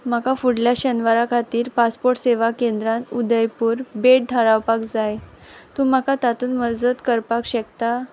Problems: constant background noise